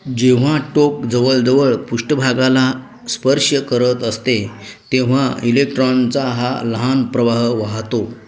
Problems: background sounds at intervals, background conversations at intervals